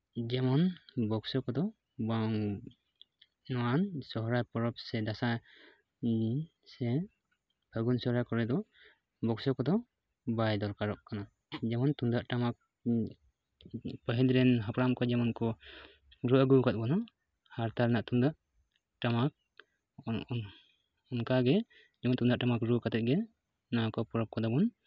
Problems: background sounds at intervals